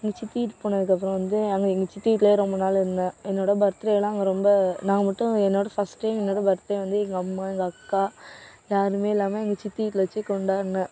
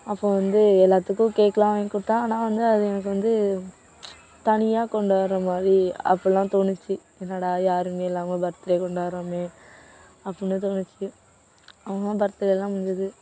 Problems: background sounds at intervals